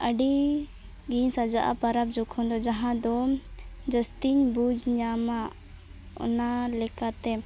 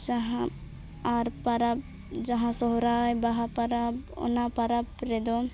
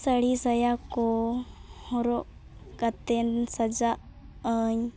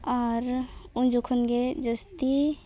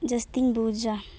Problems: none marked